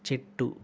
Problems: constant background noise